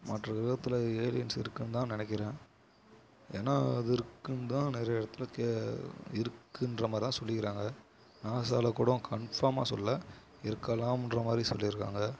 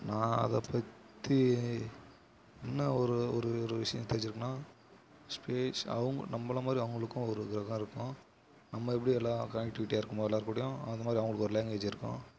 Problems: low volume